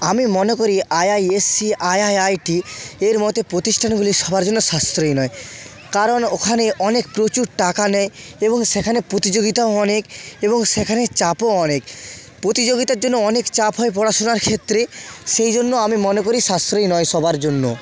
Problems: none marked